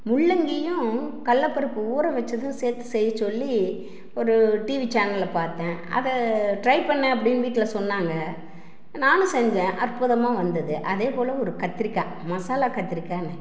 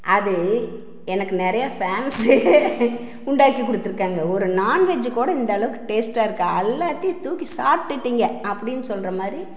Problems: background sounds at intervals